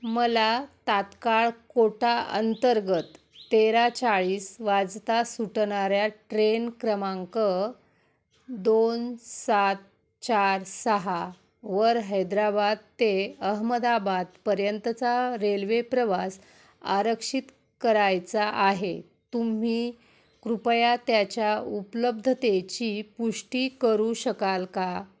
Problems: background sounds at intervals